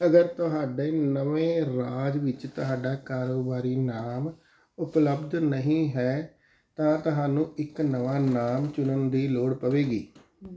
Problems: background sounds at intervals